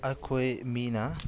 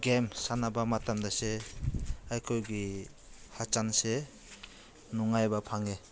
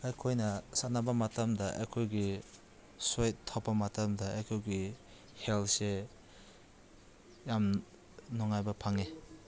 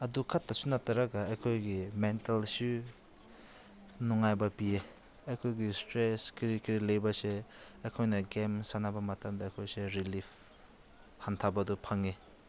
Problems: none marked